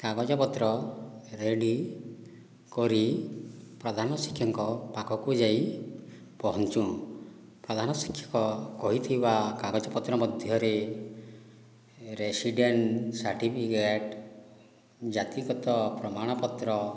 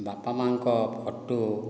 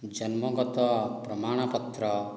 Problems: low volume